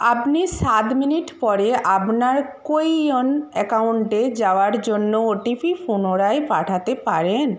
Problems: background sounds at intervals